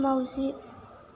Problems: constant background noise